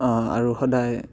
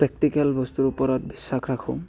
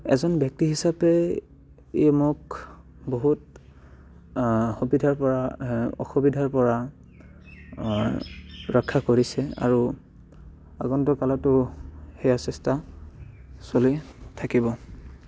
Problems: background sounds at intervals, background conversations at intervals